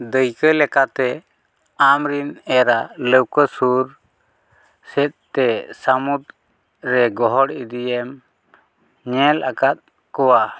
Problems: none marked